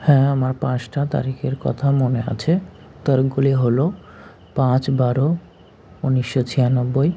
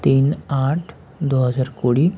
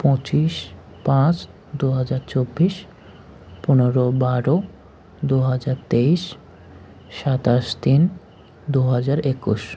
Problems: none marked